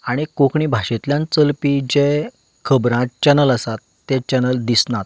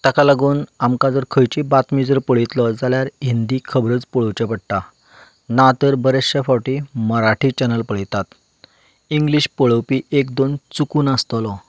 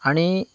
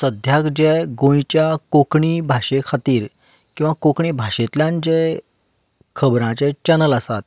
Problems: constant background noise